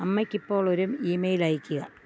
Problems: background sounds at intervals